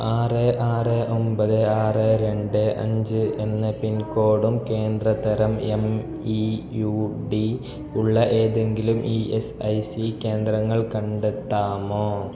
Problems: background sounds at intervals